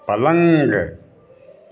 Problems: none marked